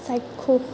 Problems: constant background noise